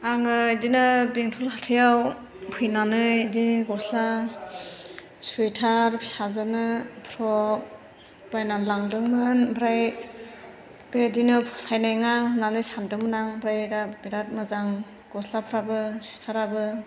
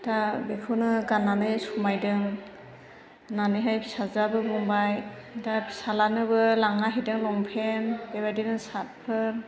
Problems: constant background noise